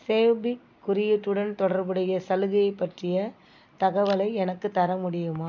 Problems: background sounds at intervals